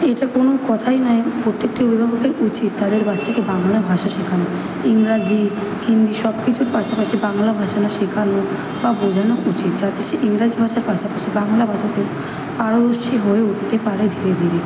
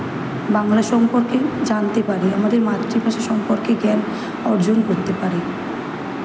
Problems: constant background noise